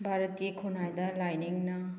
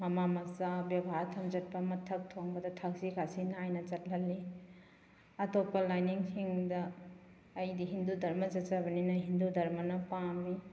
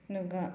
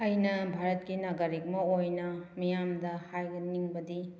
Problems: background sounds at intervals